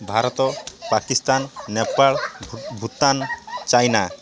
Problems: constant background noise